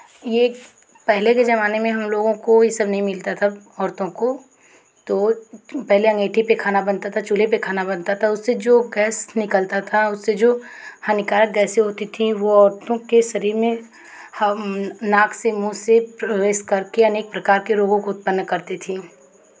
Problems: background sounds at intervals, background conversations at intervals